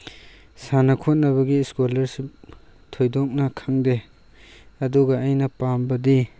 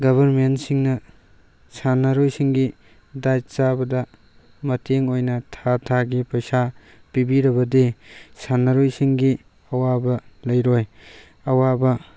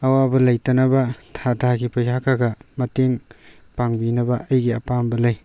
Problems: none marked